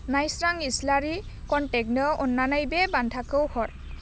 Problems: low volume